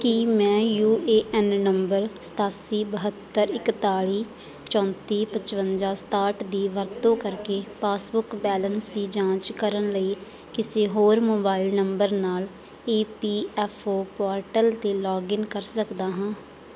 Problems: background conversations at intervals